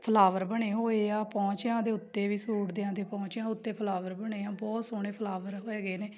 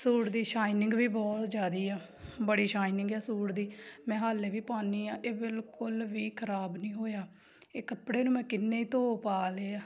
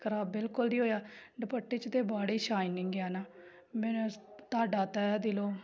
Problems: constant background noise